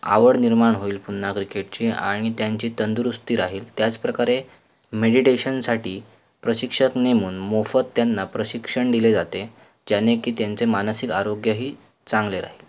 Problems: none marked